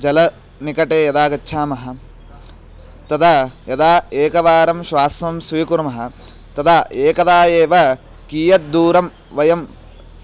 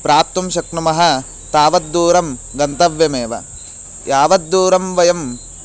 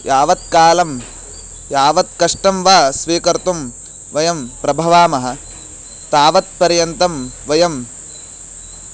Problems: constant background noise